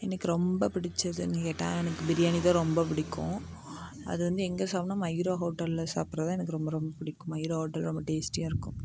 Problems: background sounds at intervals